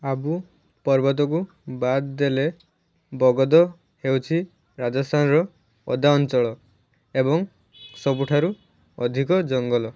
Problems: background sounds at intervals